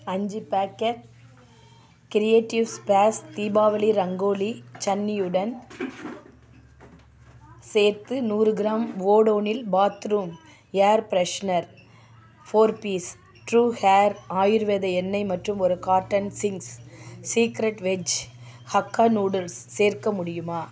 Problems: continuous background conversations